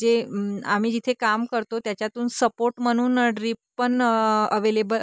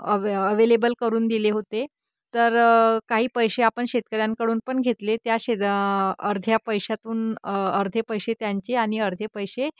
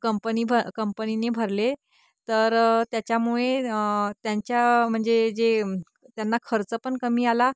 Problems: constant background noise